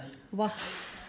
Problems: background sounds at intervals